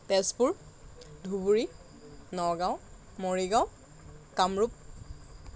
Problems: none marked